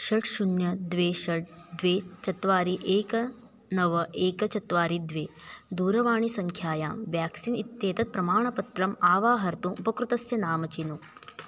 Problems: background sounds at intervals